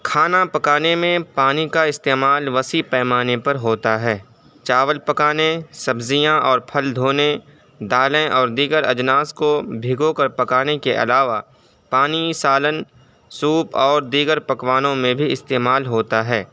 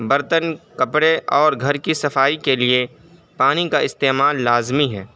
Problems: background sounds at intervals